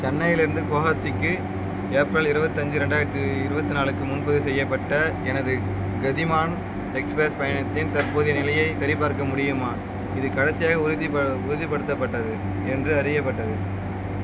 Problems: none marked